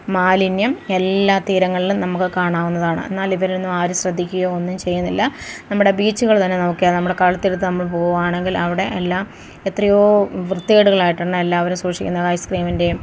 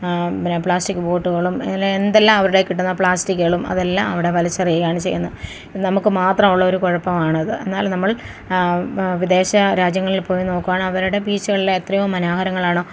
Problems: background sounds at intervals